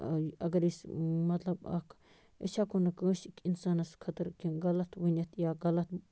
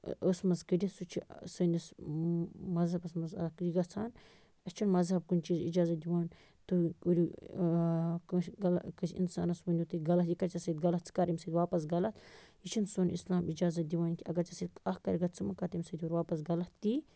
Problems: constant background noise